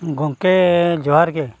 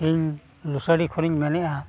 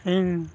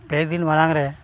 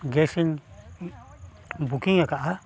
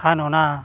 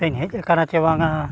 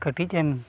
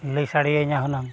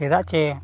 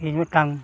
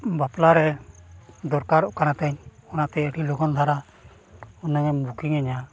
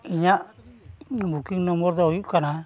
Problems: none marked